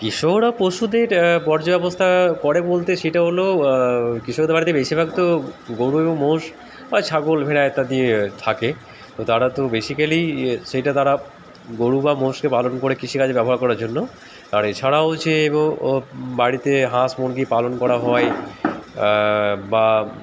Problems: constant background noise